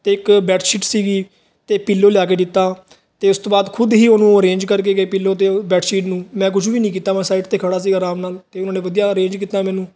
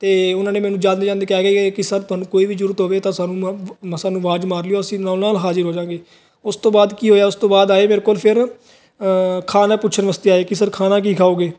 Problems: background sounds at intervals